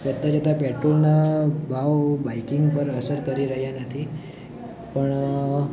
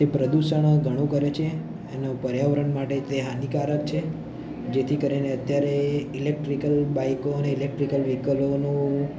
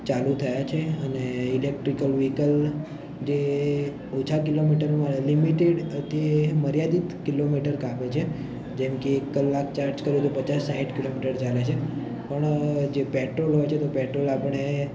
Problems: none marked